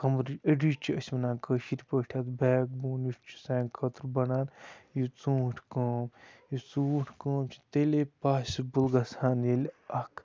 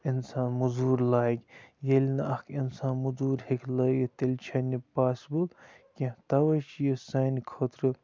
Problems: constant background noise, low volume